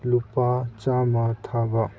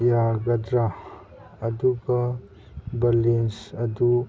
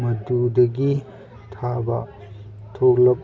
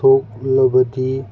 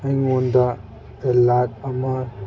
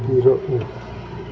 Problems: background sounds at intervals